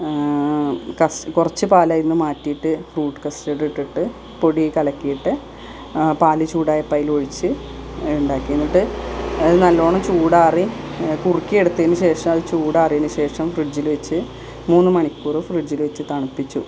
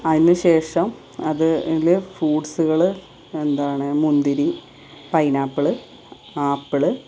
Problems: constant background noise